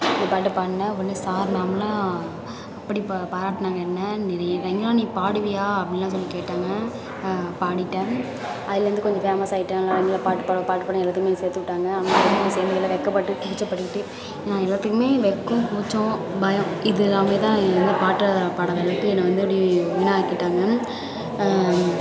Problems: none marked